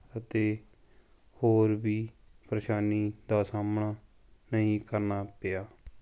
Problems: none marked